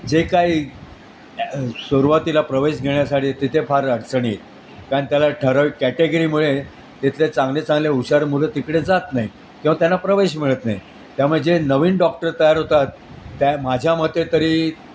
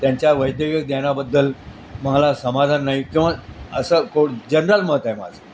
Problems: constant background noise